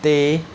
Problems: background sounds at intervals